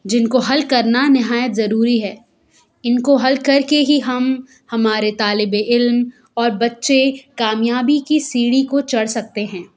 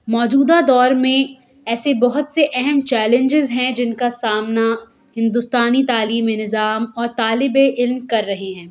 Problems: background sounds at intervals